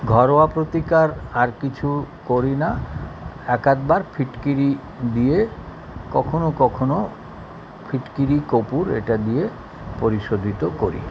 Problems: continuous background conversations